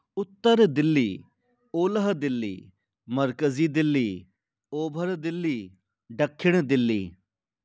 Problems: none marked